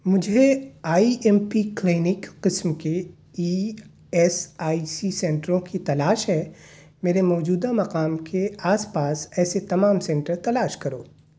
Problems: none marked